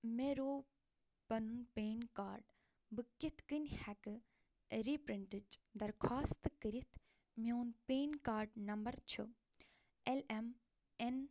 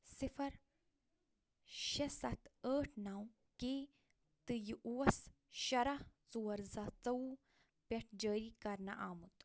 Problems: none marked